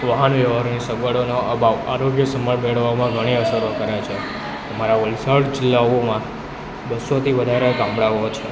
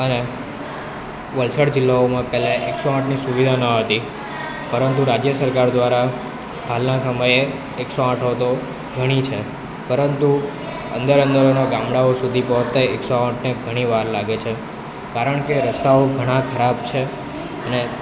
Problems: continuous background conversations